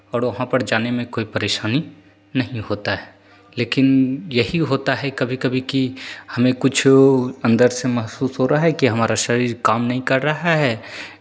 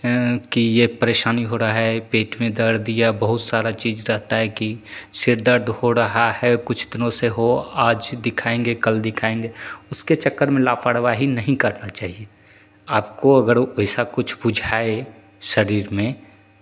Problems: none marked